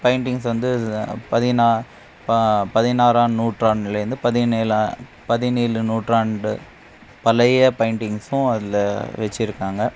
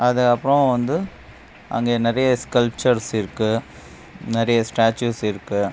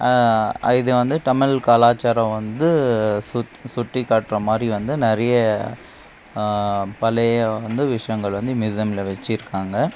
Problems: background sounds at intervals